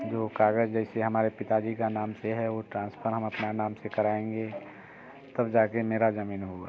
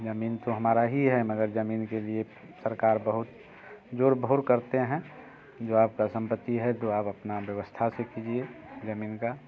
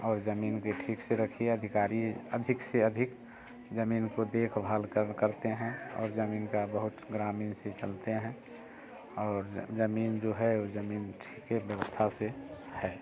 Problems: constant background noise